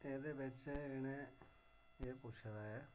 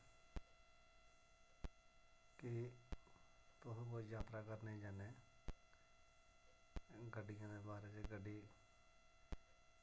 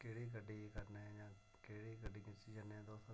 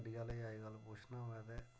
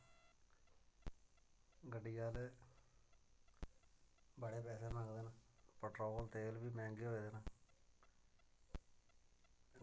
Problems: none marked